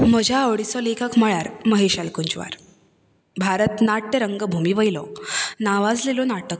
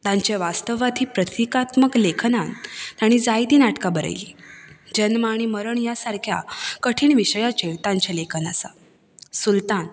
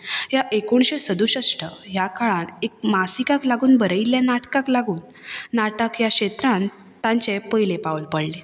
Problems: none marked